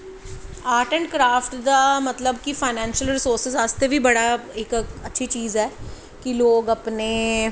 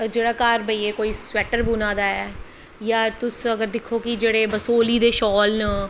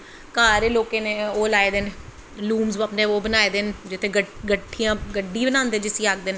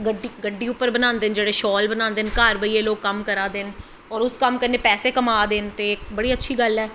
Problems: constant background noise